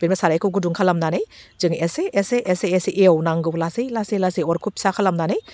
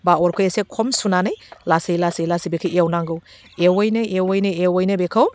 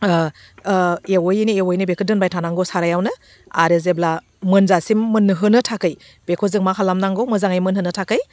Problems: none marked